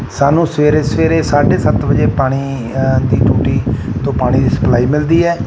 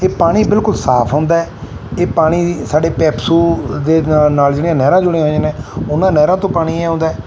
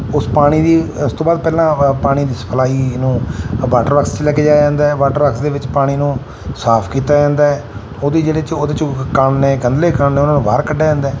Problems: none marked